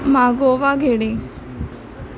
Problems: constant background noise, background conversations at intervals